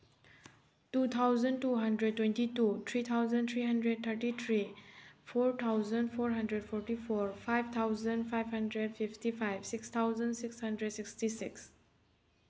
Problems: background sounds at intervals